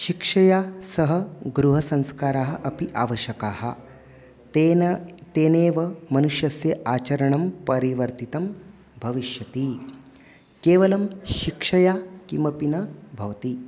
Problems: none marked